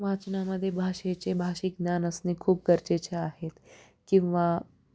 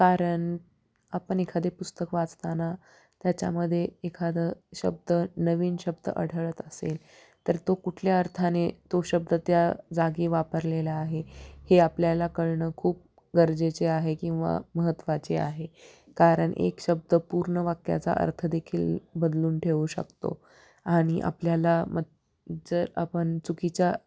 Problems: background sounds at intervals